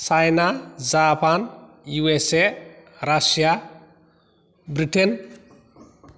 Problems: none marked